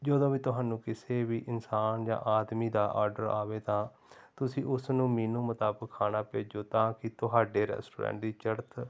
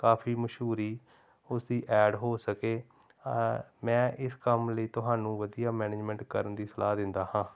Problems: background sounds at intervals